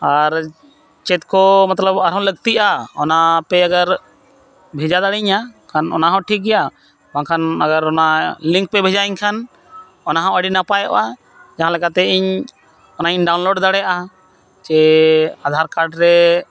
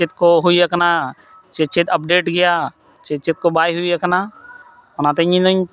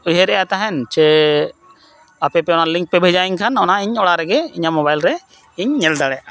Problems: none marked